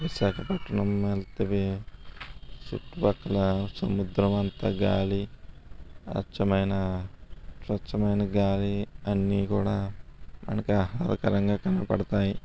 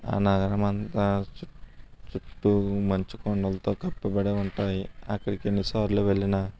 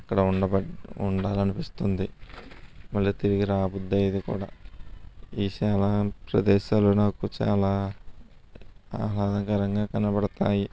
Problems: none marked